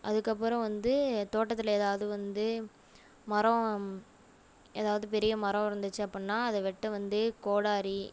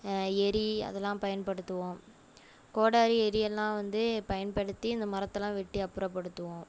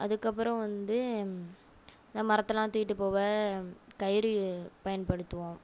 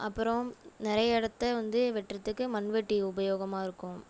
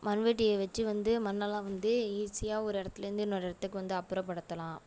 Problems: none marked